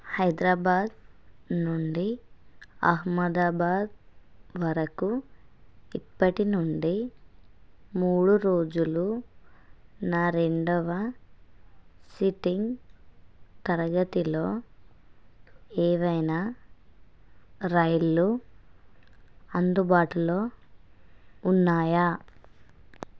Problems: none marked